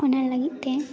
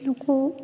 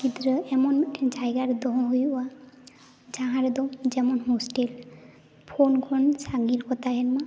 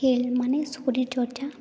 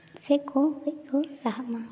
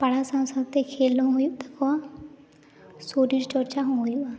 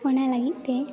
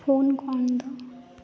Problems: none marked